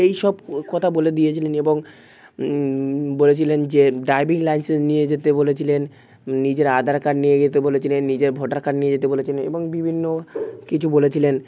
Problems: constant background noise